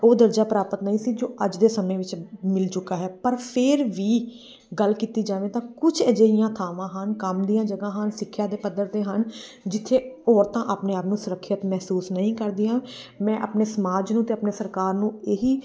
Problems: background sounds at intervals